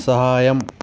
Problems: constant background noise